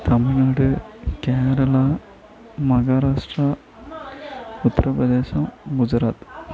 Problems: continuous background conversations